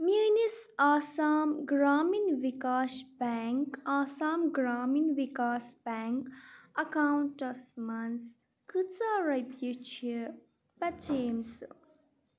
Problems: none marked